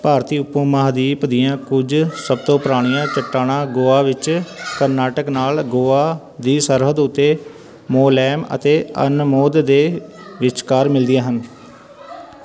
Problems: continuous background conversations